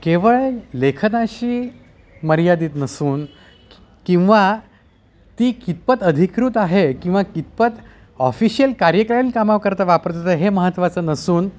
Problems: constant background noise, background conversations at intervals